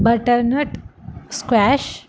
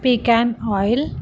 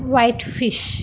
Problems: constant background noise